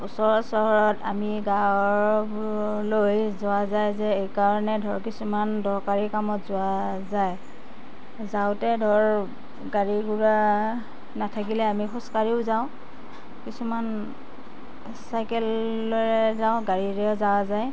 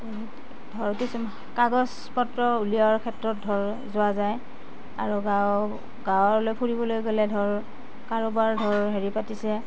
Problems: background sounds at intervals